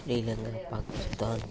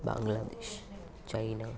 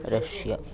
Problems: continuous background conversations, low volume